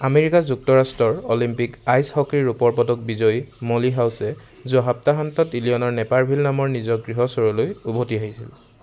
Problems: constant background noise